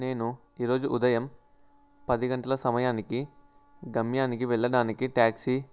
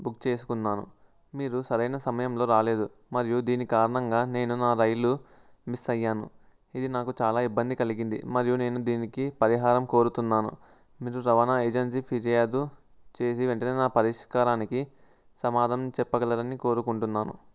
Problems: constant background noise